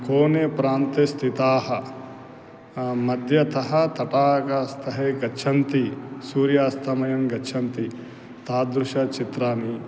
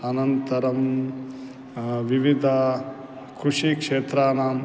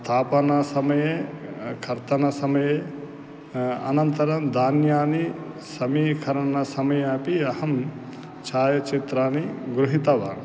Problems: constant background noise